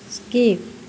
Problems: constant background noise